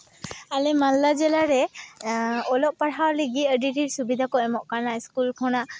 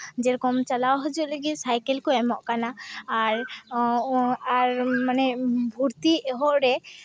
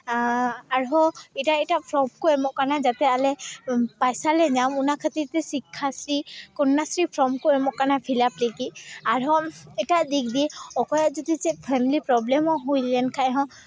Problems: background conversations at intervals